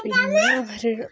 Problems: background sounds at intervals